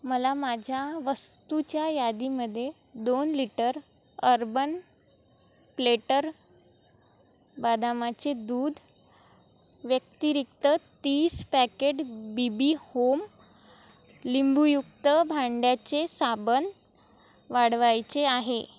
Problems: none marked